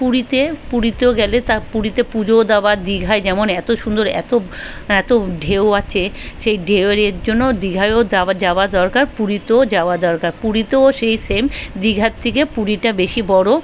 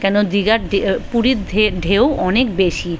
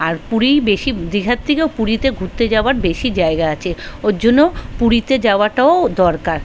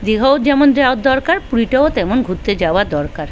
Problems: constant background noise, continuous background conversations